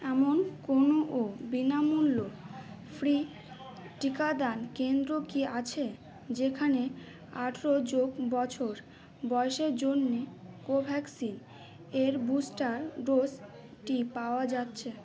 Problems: constant background noise, background conversations at intervals